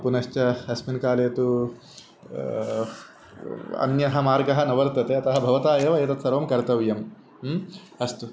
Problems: constant background noise